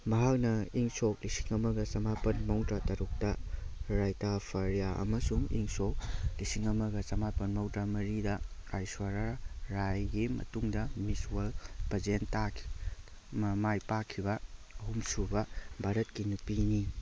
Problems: background sounds at intervals